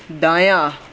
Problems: none marked